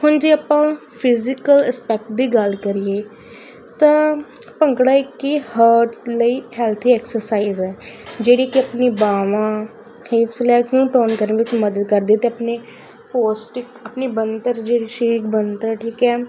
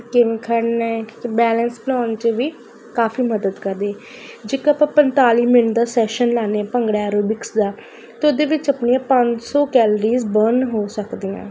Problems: constant background noise